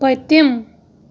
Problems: none marked